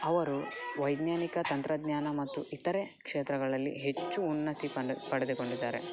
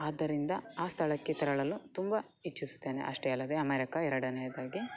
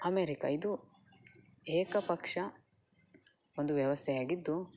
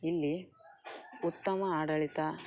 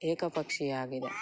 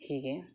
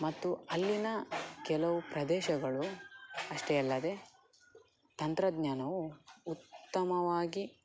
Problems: none marked